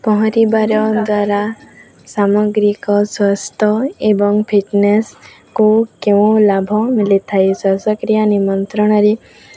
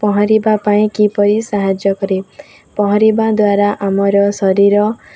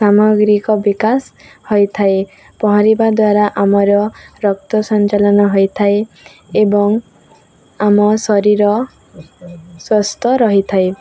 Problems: continuous background conversations